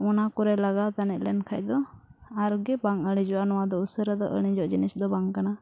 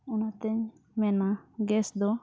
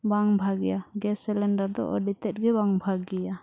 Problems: none marked